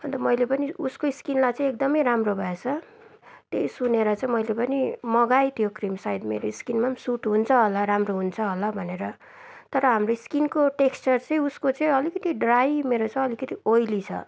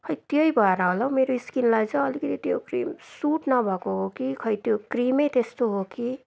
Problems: constant background noise